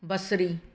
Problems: none marked